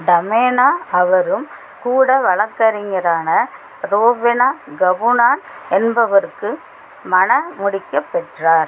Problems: constant background noise